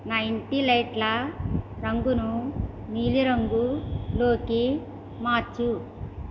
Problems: constant background noise